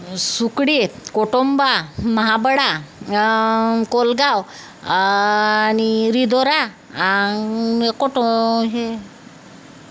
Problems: none marked